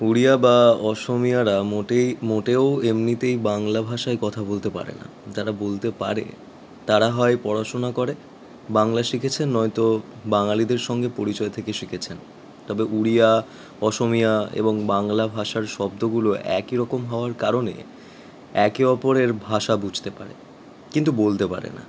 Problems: constant background noise